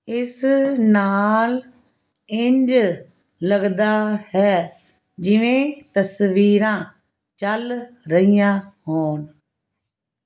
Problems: constant background noise